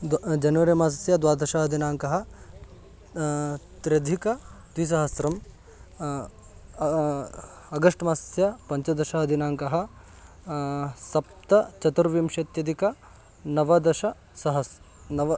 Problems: constant background noise